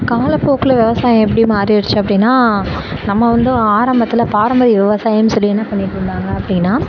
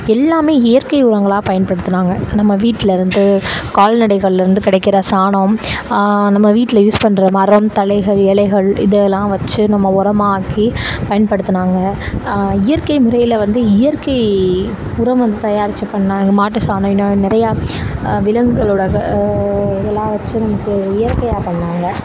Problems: constant background noise